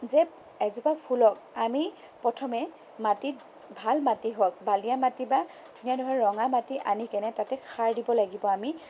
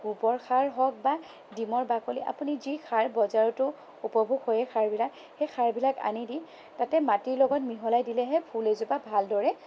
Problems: none marked